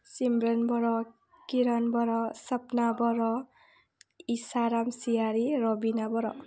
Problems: none marked